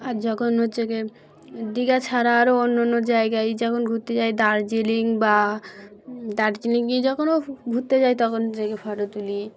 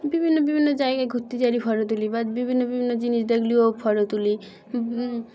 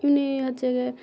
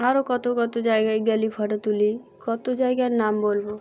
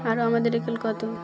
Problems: none marked